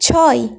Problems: continuous background conversations